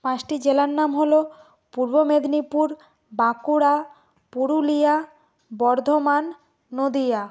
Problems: constant background noise